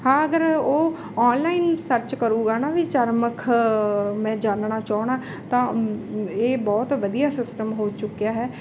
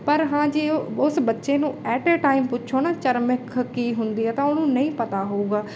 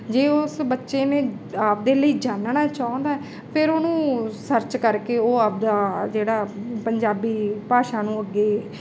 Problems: none marked